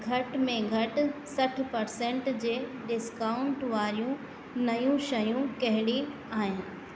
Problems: echo